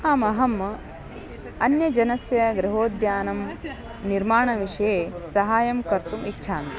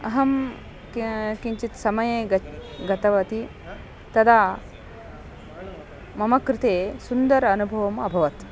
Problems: continuous background conversations